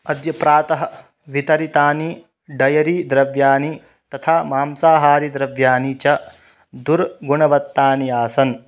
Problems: none marked